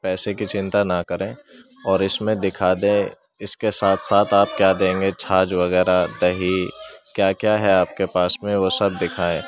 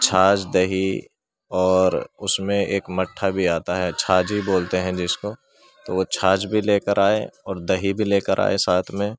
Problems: constant background noise